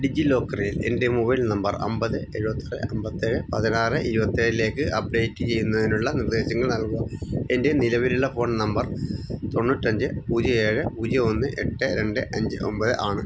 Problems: constant background noise